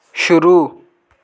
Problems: background sounds at intervals